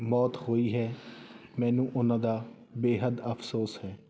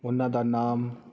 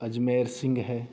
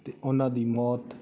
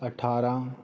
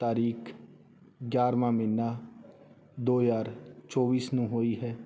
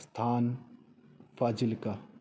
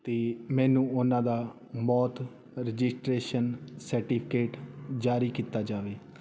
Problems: constant background noise